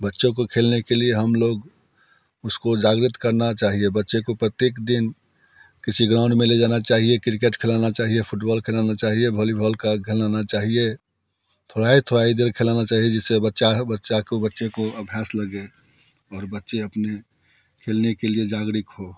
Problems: background sounds at intervals